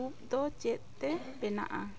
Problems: constant background noise